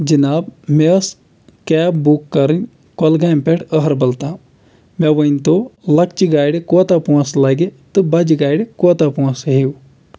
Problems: none marked